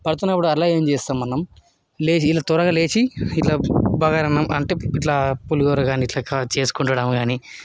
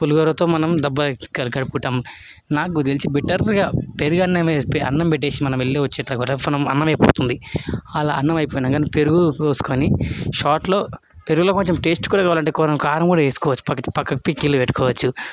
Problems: constant background noise, continuous background conversations